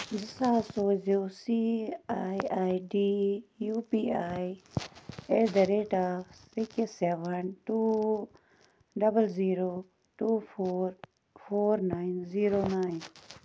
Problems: constant background noise